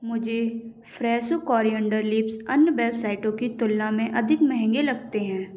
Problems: echo